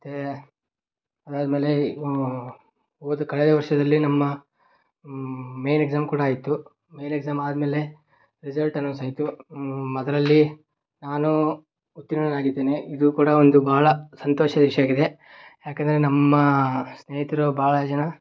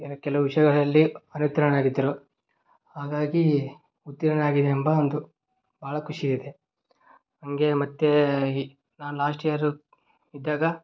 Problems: none marked